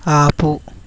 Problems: none marked